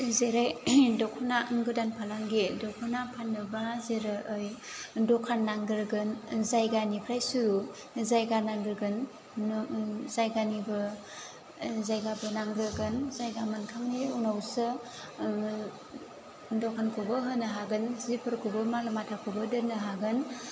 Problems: low volume